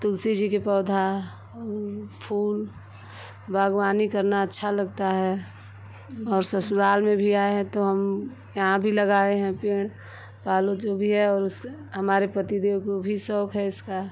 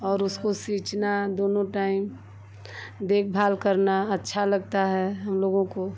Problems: none marked